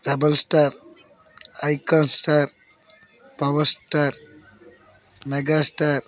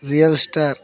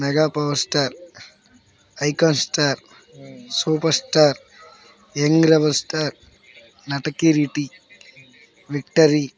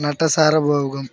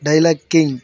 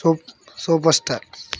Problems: background conversations at intervals